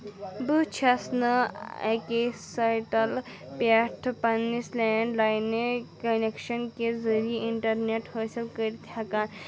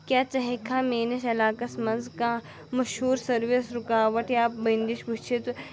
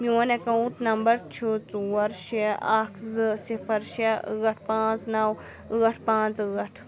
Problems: none marked